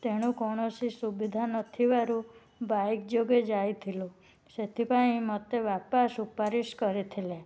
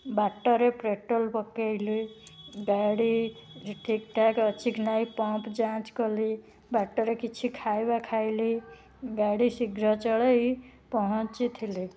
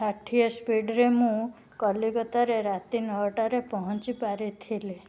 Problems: none marked